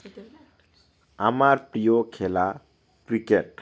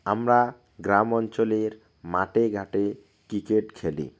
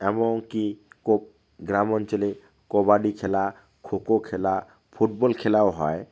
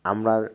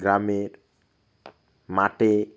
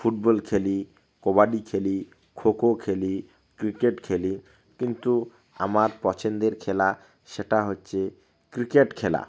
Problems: none marked